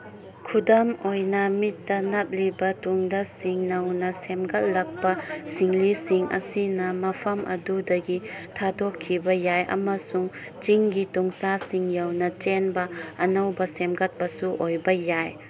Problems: background sounds at intervals, background conversations at intervals